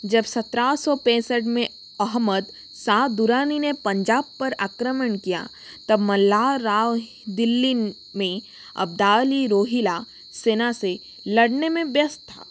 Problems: constant background noise